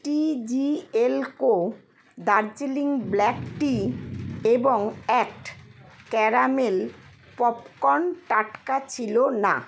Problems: none marked